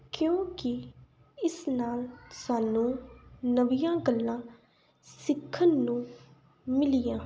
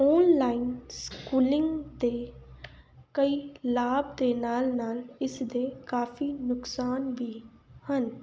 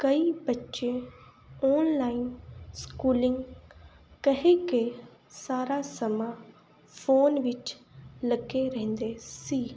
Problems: background sounds at intervals